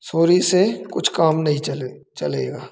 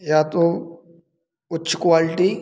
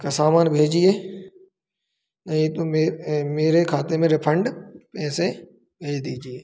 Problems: none marked